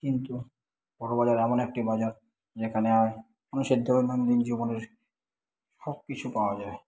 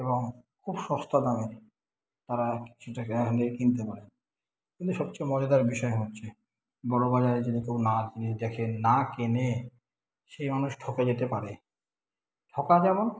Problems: background sounds at intervals